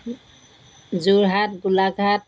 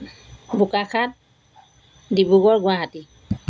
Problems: background sounds at intervals